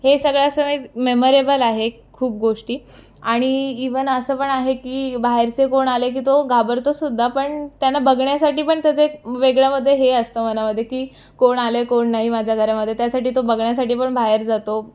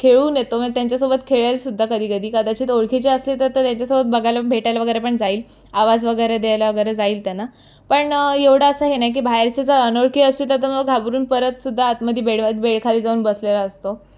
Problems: none marked